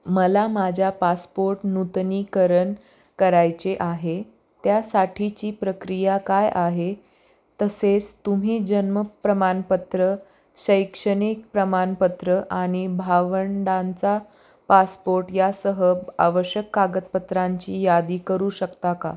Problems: none marked